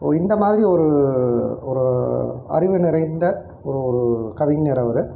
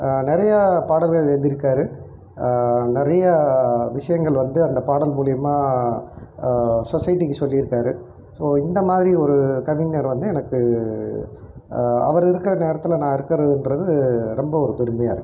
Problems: none marked